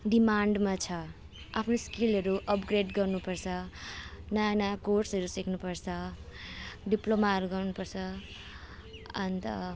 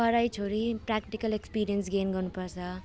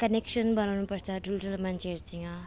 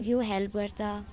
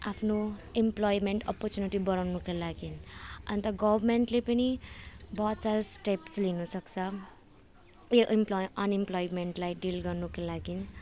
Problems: none marked